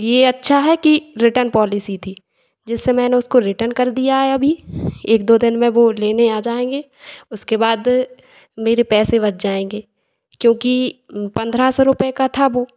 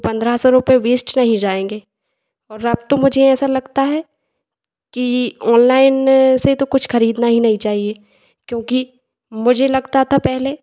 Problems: echo